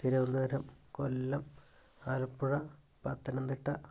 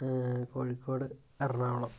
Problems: none marked